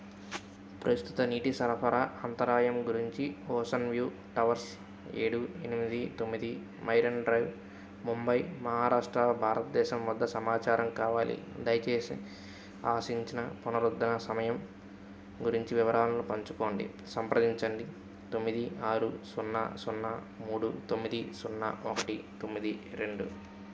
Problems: none marked